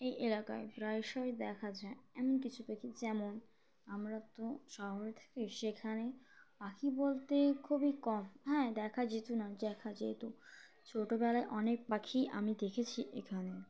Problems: constant background noise